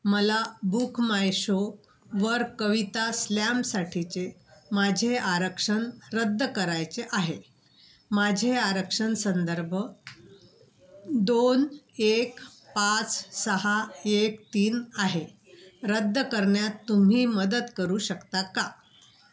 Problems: background sounds at intervals